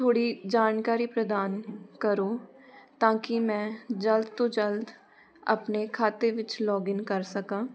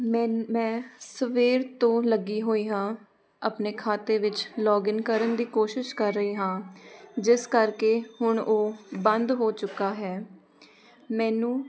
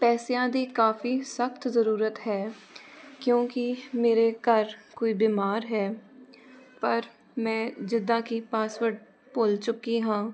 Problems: none marked